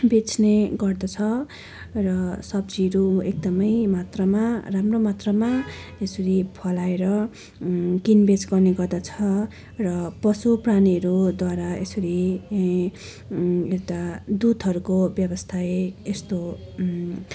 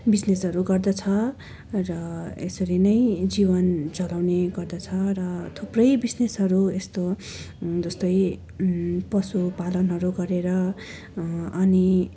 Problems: continuous background conversations